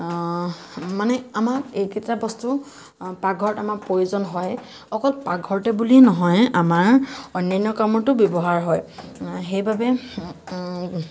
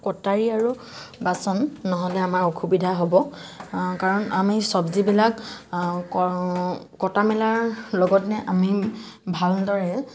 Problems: constant background noise